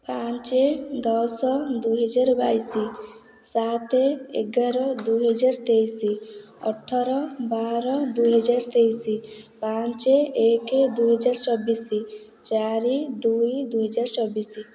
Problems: echo